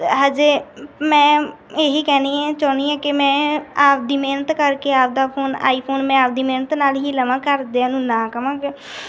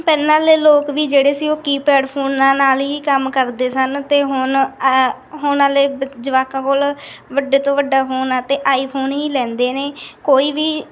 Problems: none marked